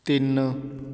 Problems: background sounds at intervals